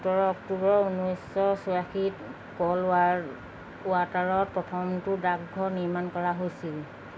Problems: none marked